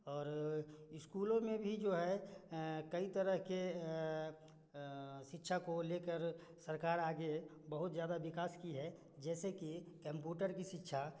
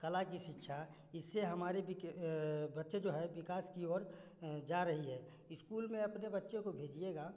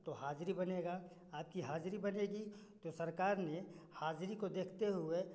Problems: constant background noise